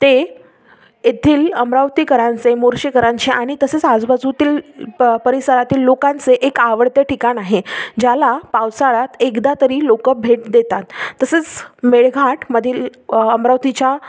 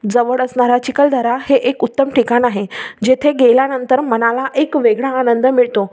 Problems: none marked